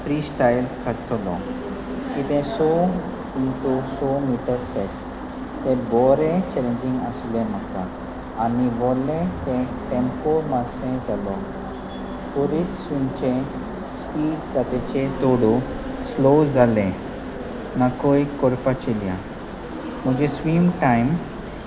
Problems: constant background noise, continuous background conversations